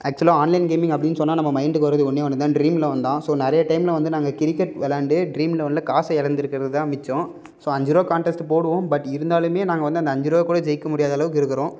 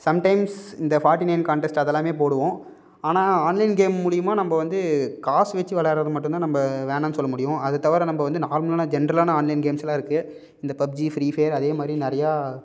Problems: none marked